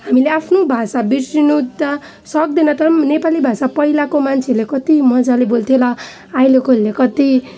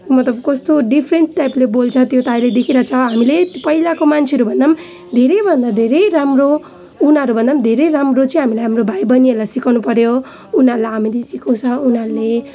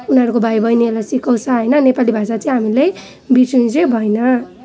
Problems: none marked